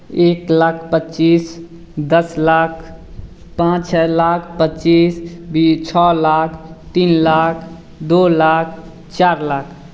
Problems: none marked